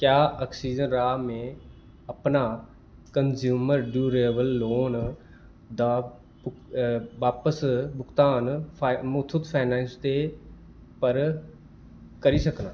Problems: background sounds at intervals